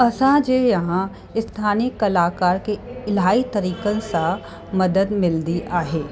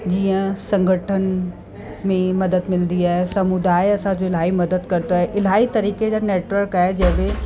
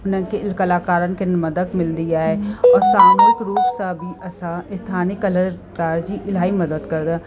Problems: constant background noise